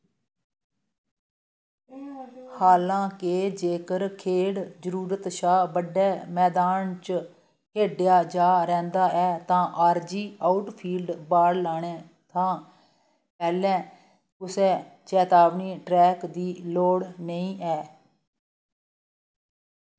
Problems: none marked